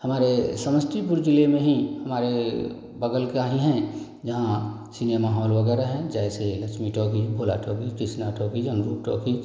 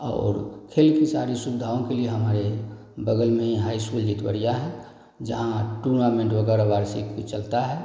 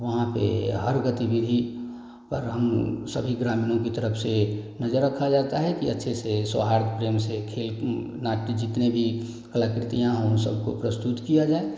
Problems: none marked